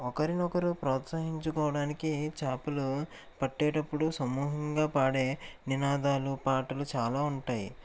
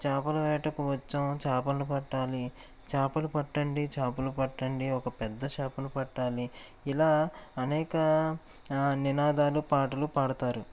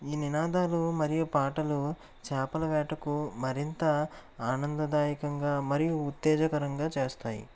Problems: constant background noise